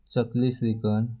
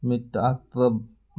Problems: constant background noise